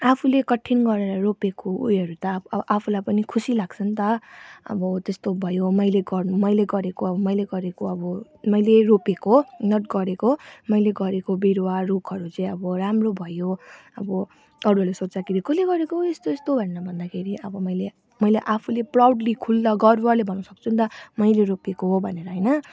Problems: background sounds at intervals